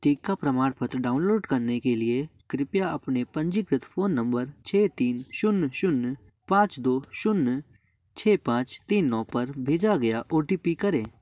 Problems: background sounds at intervals